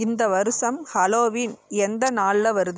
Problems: background sounds at intervals